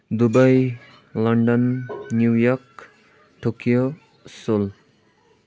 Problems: constant background noise